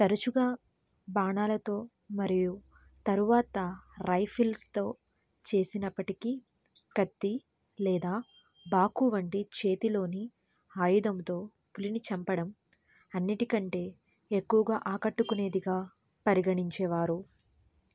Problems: none marked